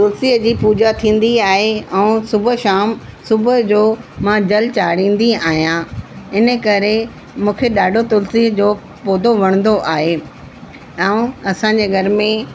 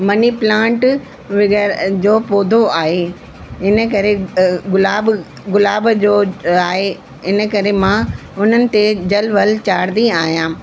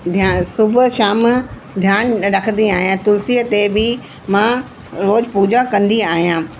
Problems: constant background noise